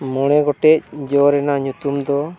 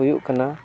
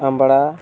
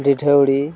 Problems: none marked